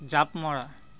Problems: constant background noise